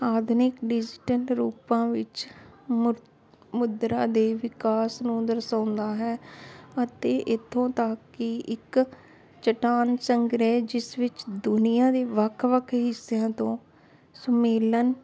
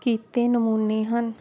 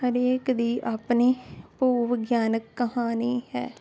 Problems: constant background noise